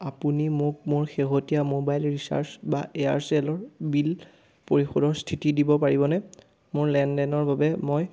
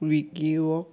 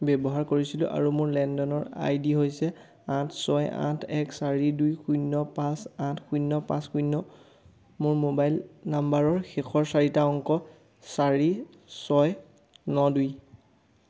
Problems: background sounds at intervals